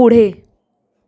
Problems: echo